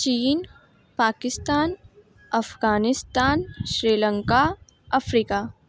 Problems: constant background noise